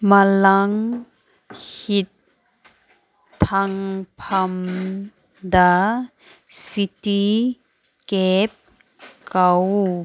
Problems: none marked